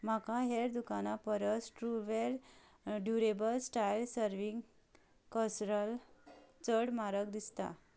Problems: background sounds at intervals